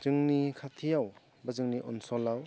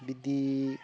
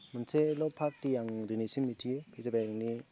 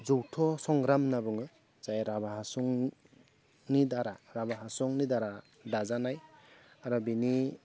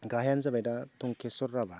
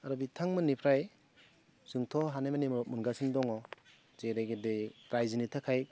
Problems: low volume